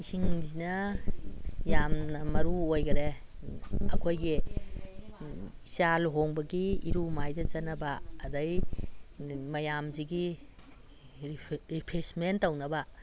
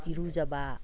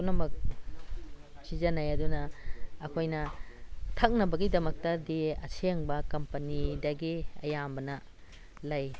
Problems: none marked